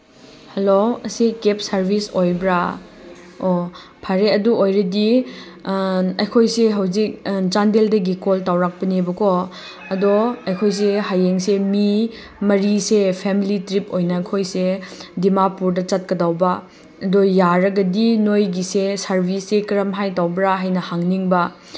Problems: constant background noise